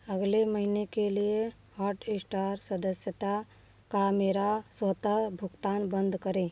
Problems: background sounds at intervals